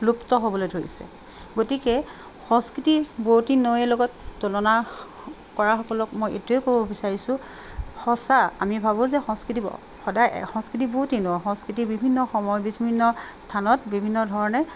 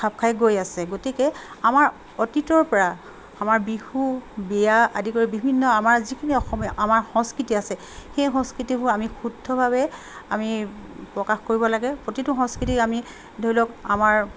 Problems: constant background noise